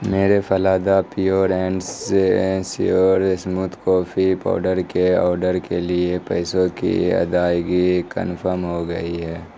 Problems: background sounds at intervals